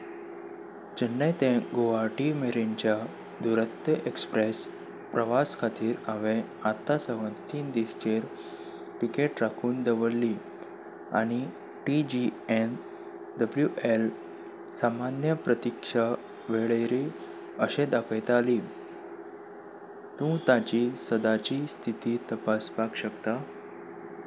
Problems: background sounds at intervals